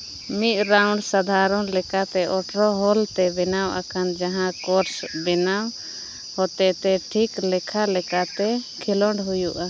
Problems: constant background noise